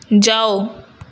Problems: constant background noise